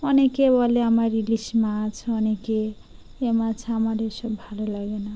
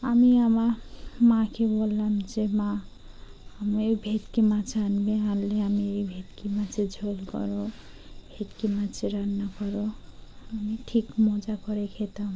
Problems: background sounds at intervals